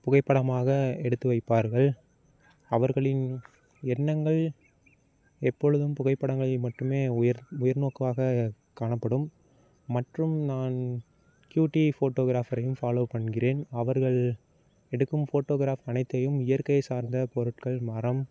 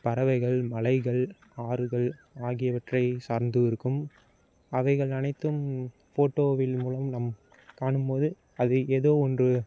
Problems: constant background noise